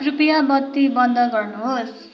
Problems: constant background noise